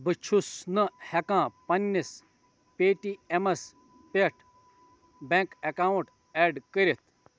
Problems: none marked